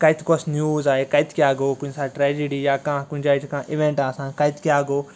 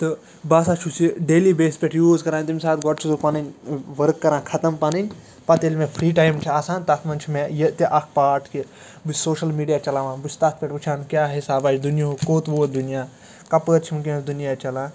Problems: constant background noise